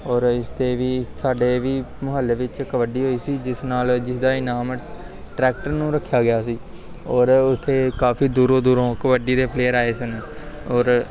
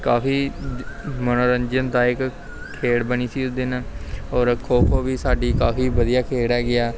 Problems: constant background noise, background conversations at intervals